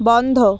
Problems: none marked